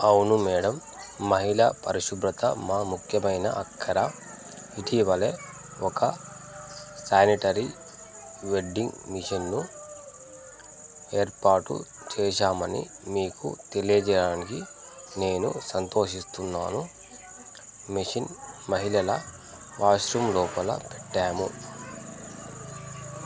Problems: none marked